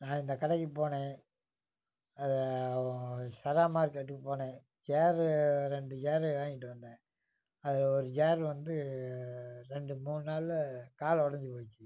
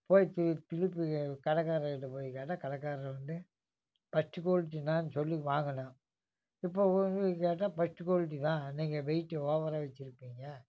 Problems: background sounds at intervals